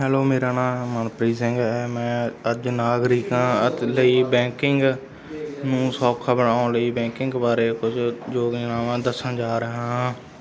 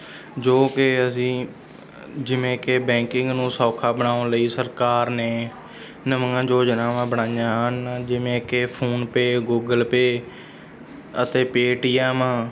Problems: background sounds at intervals, background conversations at intervals